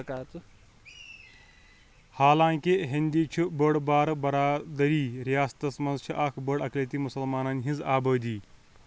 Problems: background conversations at intervals